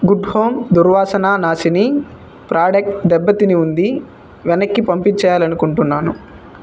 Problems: constant background noise